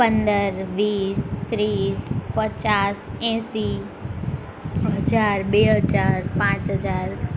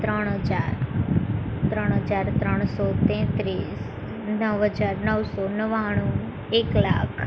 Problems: constant background noise